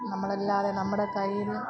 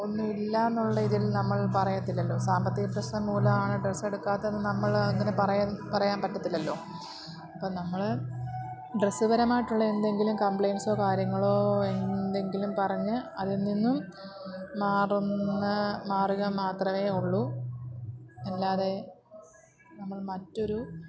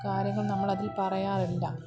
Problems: constant background noise, low volume